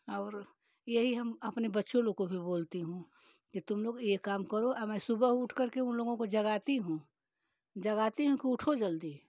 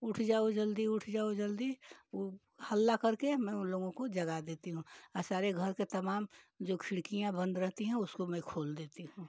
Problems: none marked